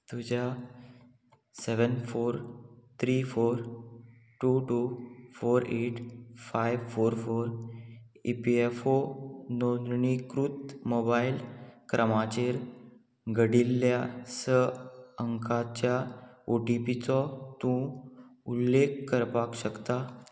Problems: none marked